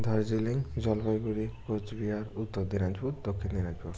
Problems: background sounds at intervals